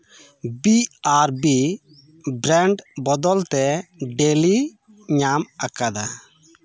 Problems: background conversations at intervals